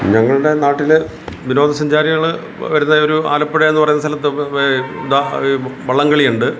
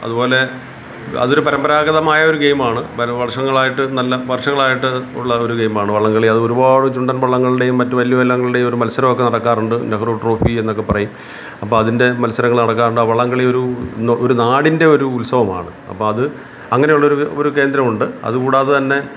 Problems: constant background noise